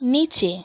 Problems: constant background noise